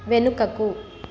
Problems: constant background noise